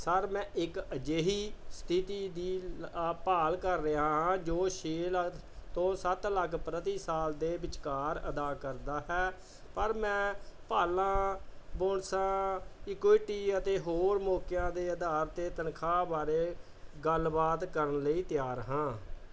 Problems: background sounds at intervals